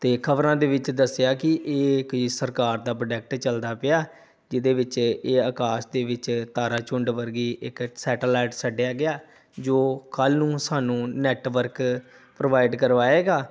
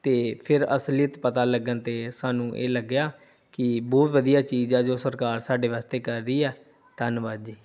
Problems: background sounds at intervals